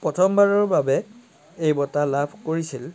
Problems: constant background noise